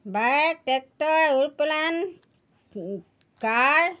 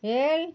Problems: background sounds at intervals